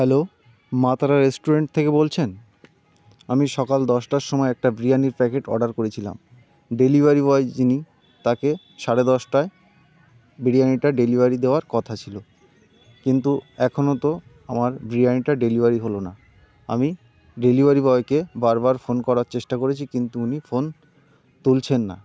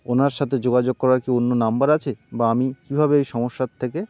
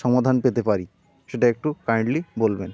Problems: constant background noise, continuous background conversations